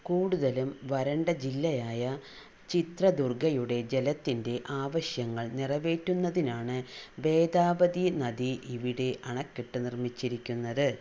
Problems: low volume